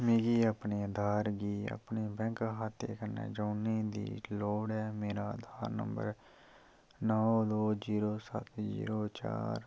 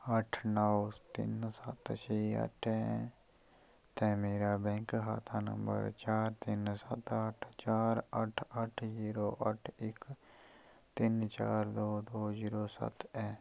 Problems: low volume